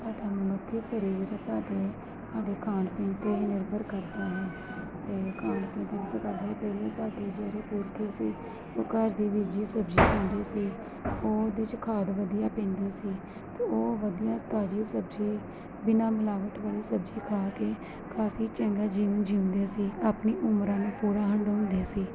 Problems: constant background noise